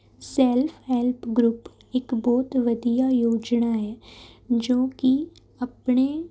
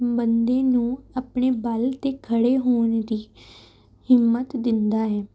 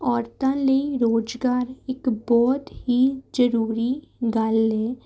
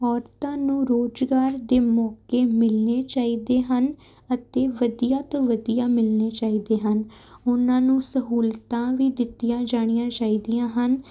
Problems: none marked